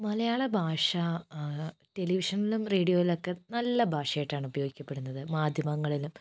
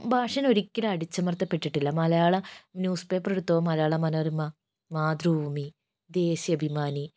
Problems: none marked